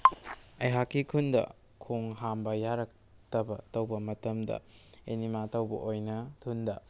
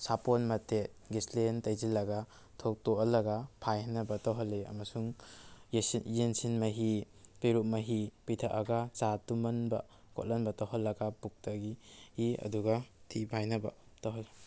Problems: none marked